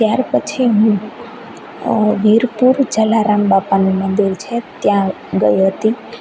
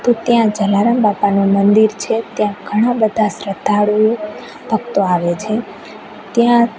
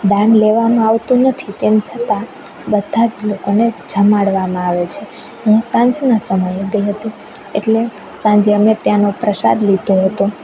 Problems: none marked